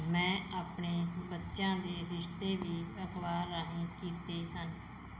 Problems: background sounds at intervals